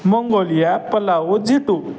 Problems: none marked